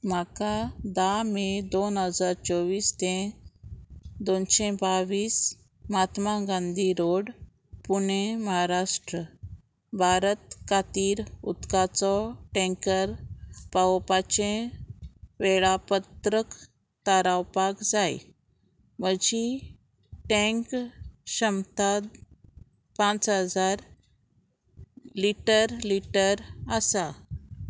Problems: constant background noise